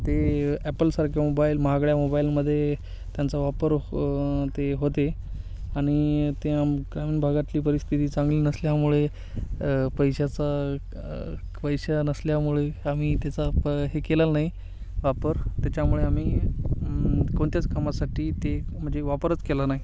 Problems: constant background noise, background conversations at intervals